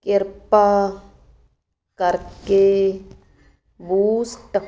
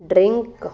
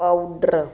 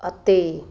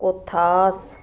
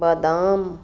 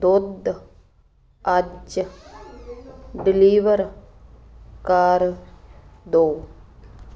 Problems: none marked